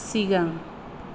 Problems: low volume